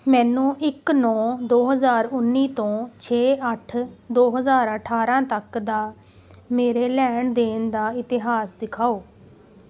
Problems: background sounds at intervals